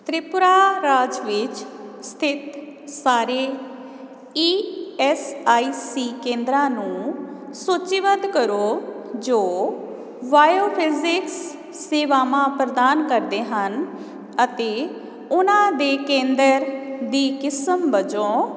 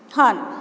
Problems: background sounds at intervals